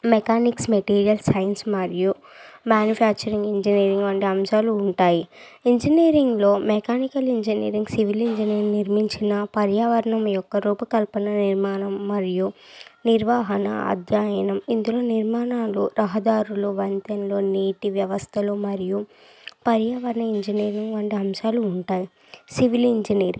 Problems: none marked